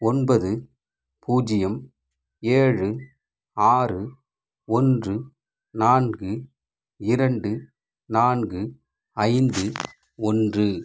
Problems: background sounds at intervals